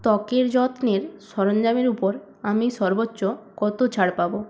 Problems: constant background noise